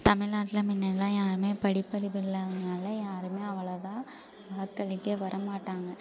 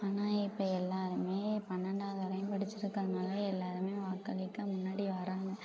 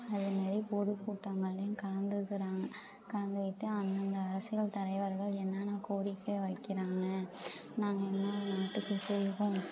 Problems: background sounds at intervals, low volume